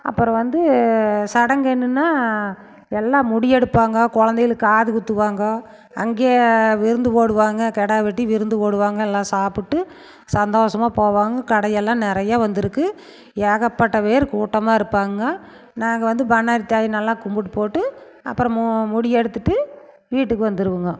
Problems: none marked